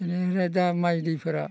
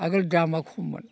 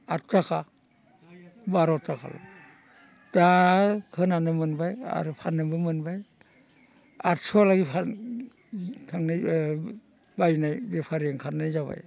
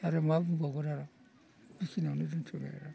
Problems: constant background noise